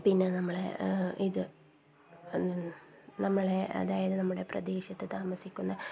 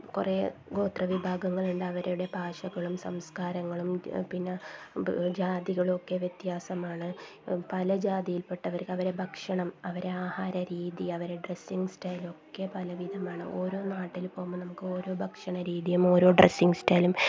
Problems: constant background noise, low volume